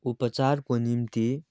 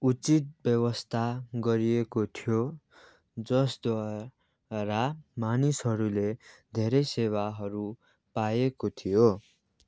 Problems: background sounds at intervals